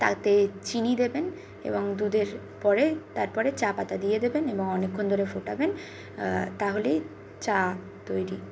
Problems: none marked